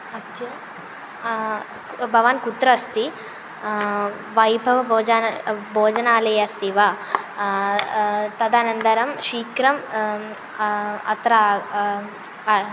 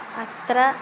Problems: constant background noise